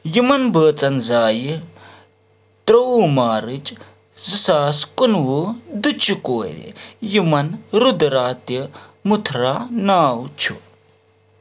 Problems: none marked